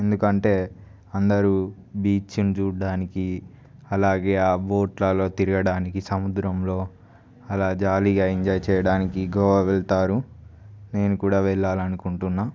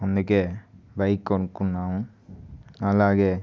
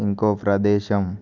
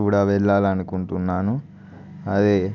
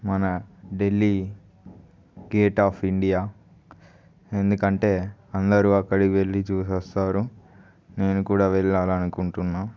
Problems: none marked